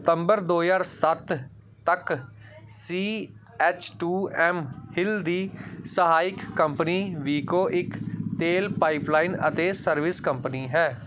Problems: background sounds at intervals